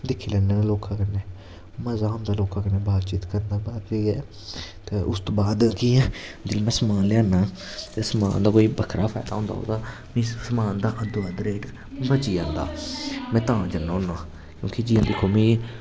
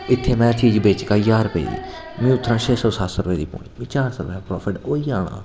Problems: constant background noise